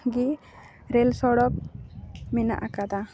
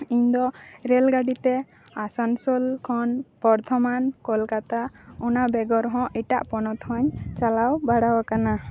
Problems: background conversations at intervals